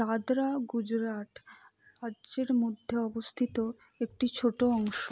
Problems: low volume